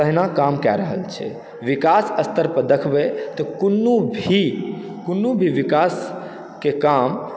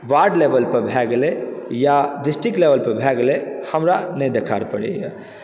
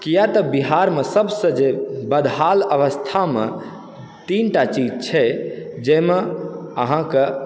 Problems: background sounds at intervals, background conversations at intervals